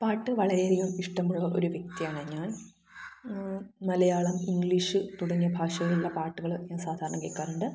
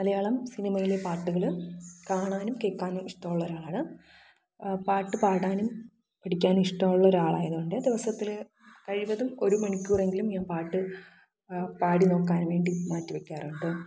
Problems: echo